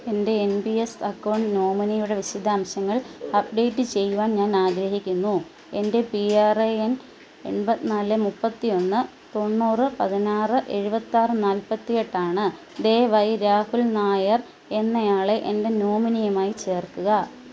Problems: none marked